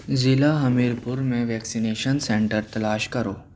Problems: constant background noise